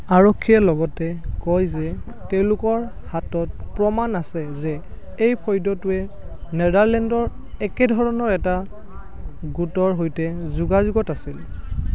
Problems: constant background noise